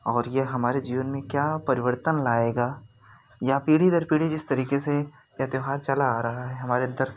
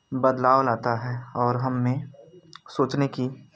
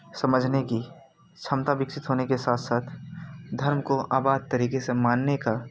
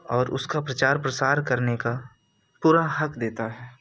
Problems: none marked